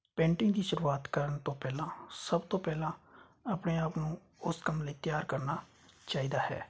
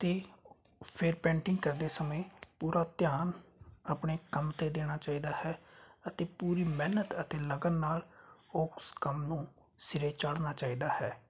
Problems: constant background noise